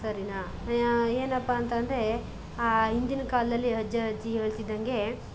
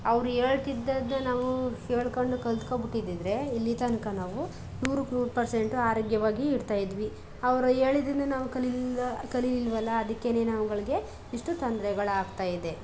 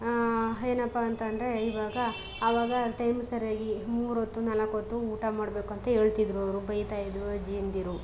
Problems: background sounds at intervals